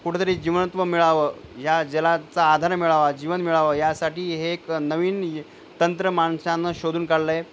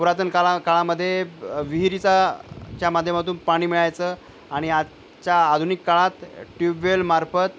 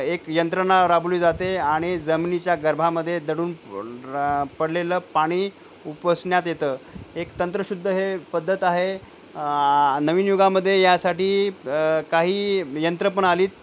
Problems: none marked